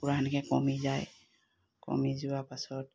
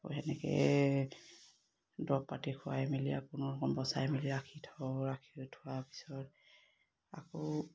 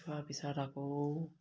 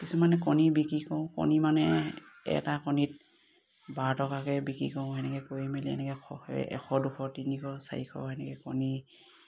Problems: none marked